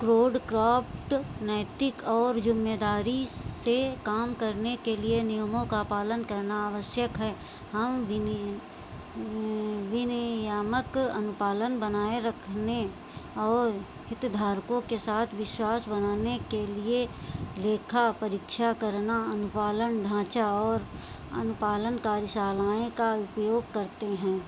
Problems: constant background noise